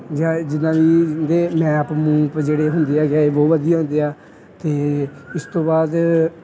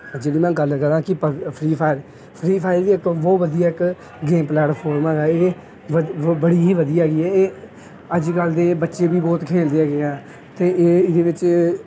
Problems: background sounds at intervals, background conversations at intervals